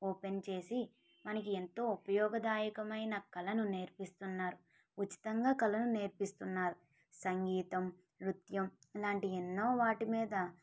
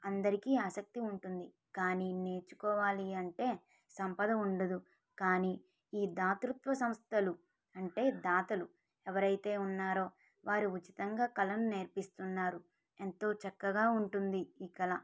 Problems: low volume